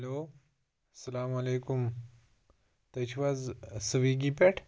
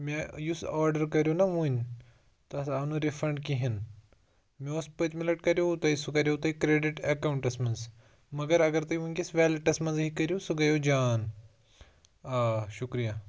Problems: none marked